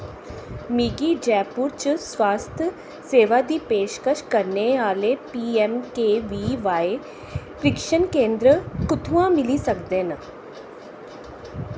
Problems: constant background noise